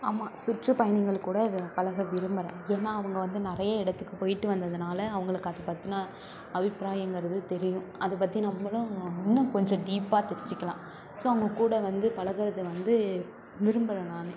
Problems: constant background noise